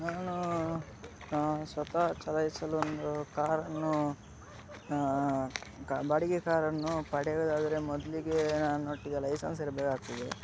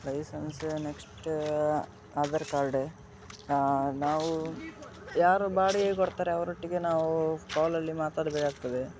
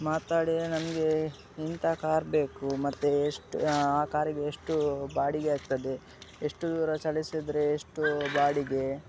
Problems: background sounds at intervals